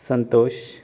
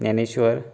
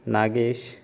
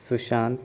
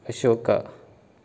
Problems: background conversations at intervals